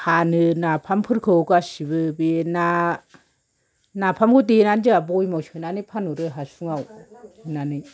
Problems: background sounds at intervals